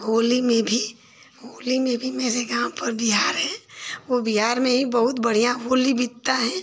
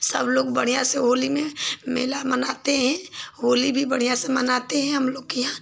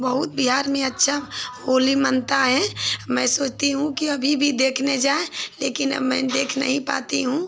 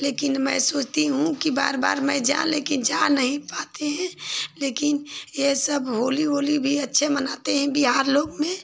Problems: background sounds at intervals